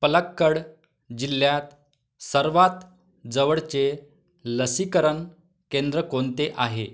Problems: none marked